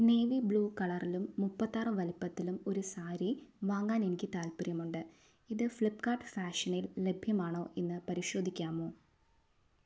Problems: none marked